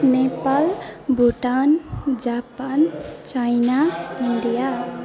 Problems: background sounds at intervals, continuous background conversations